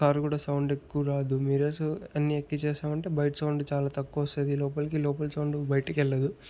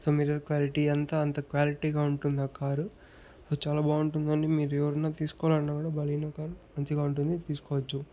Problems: background sounds at intervals, background conversations at intervals